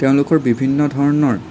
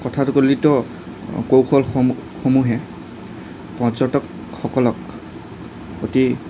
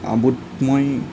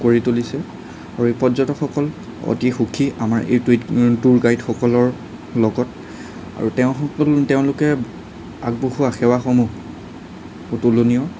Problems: none marked